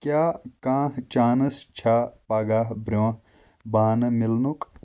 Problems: none marked